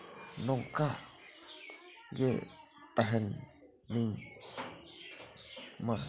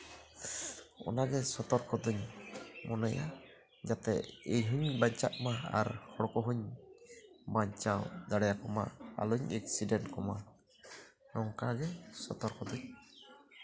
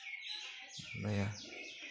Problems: background sounds at intervals